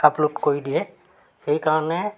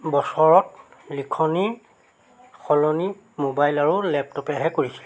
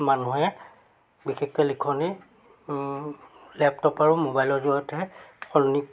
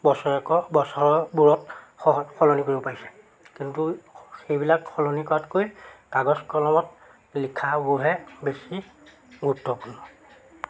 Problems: constant background noise